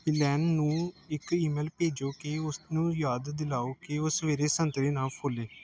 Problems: background sounds at intervals